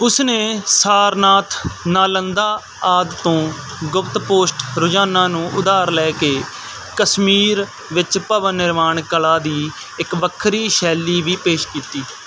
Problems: constant background noise